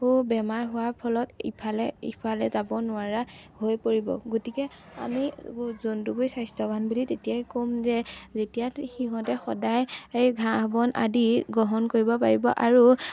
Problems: none marked